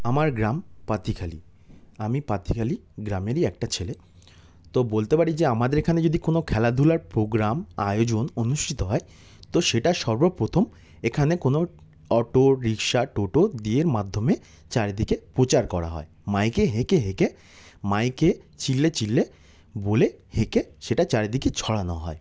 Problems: background sounds at intervals